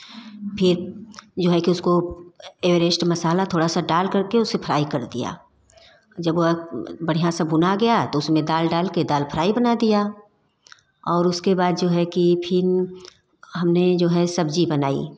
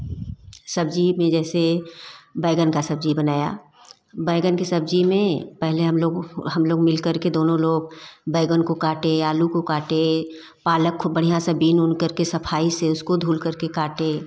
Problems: constant background noise